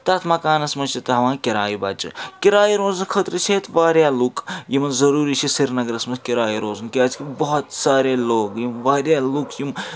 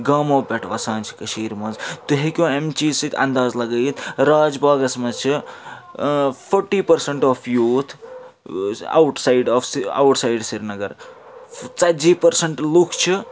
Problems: constant background noise